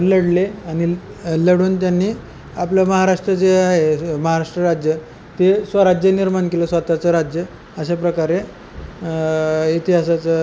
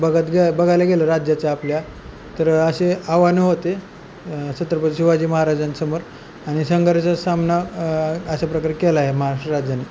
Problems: none marked